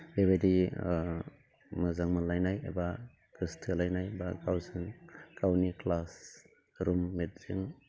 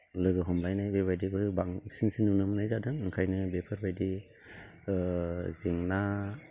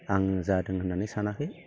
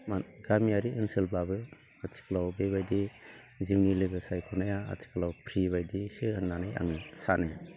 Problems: low volume